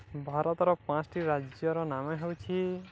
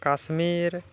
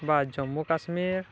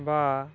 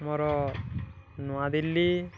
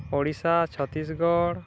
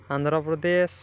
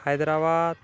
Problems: none marked